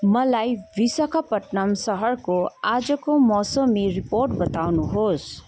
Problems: constant background noise